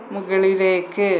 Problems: constant background noise